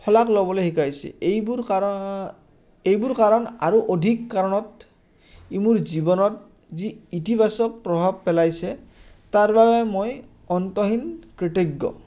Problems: constant background noise